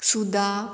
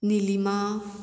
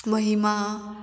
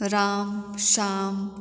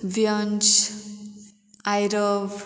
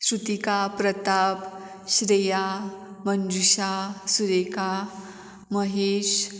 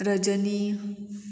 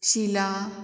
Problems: none marked